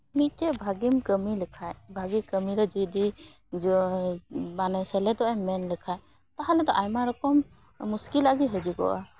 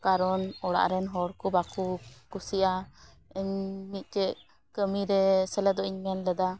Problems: background sounds at intervals